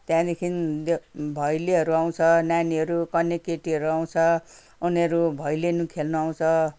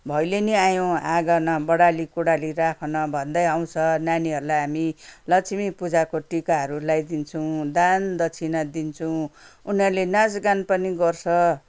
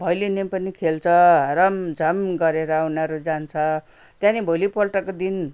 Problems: none marked